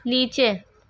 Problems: none marked